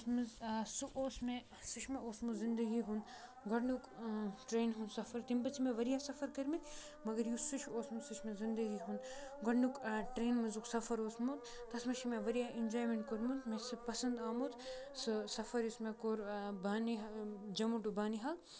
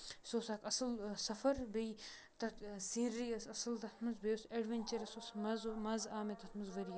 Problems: constant background noise, low volume